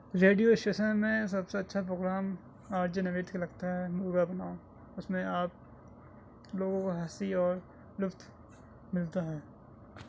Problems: none marked